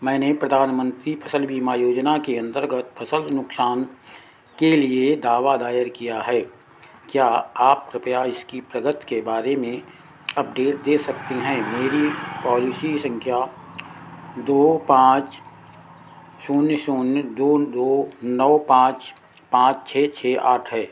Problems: constant background noise